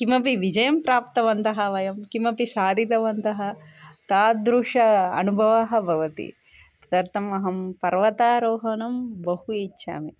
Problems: none marked